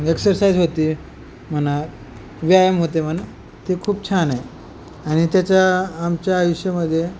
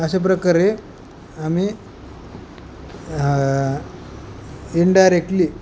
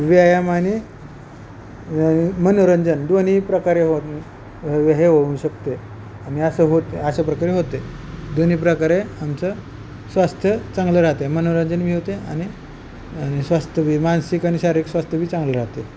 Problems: constant background noise